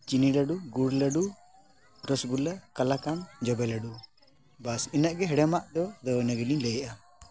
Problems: background conversations at intervals